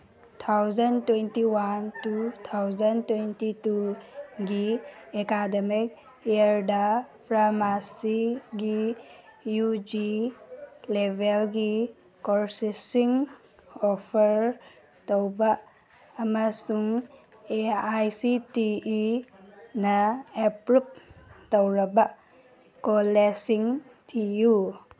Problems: background sounds at intervals